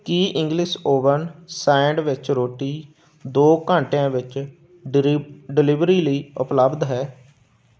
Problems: background sounds at intervals